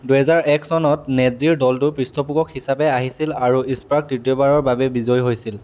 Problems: none marked